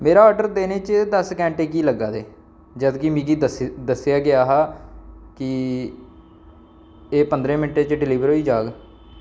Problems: none marked